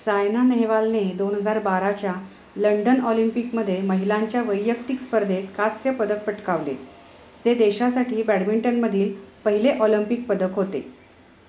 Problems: none marked